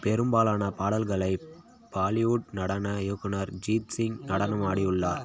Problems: constant background noise, background conversations at intervals